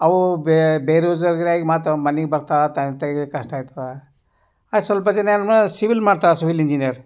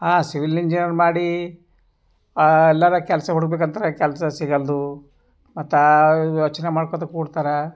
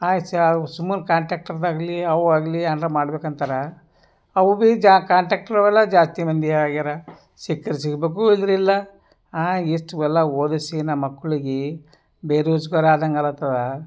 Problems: none marked